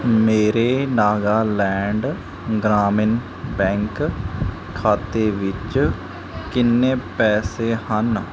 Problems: background sounds at intervals